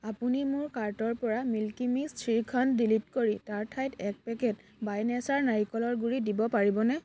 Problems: background sounds at intervals